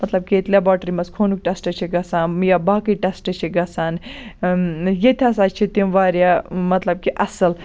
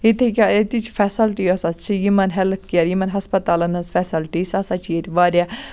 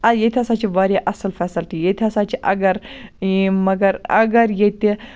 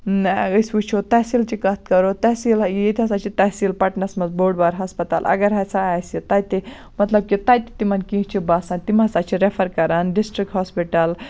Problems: constant background noise